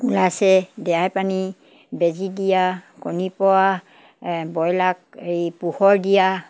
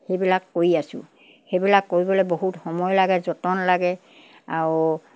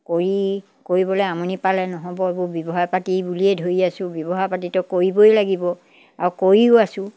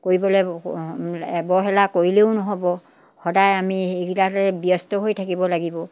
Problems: background sounds at intervals